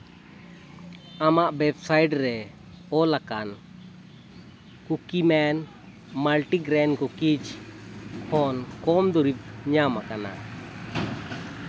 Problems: constant background noise